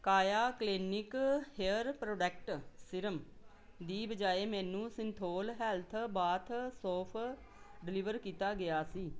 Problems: background conversations at intervals